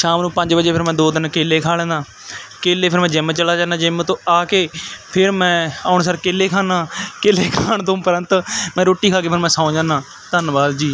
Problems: none marked